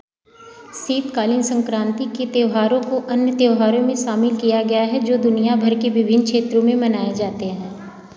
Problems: background sounds at intervals